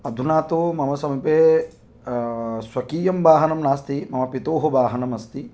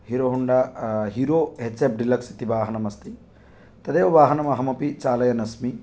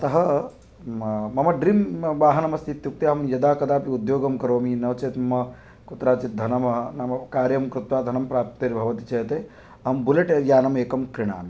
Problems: none marked